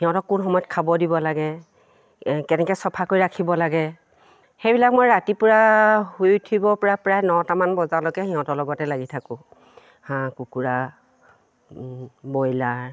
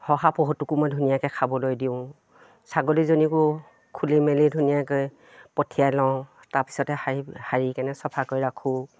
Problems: none marked